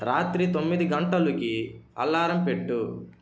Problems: constant background noise